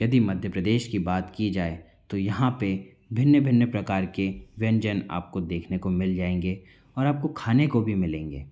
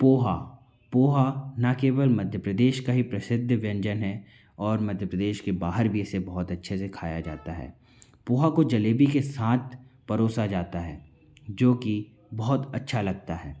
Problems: constant background noise, background conversations at intervals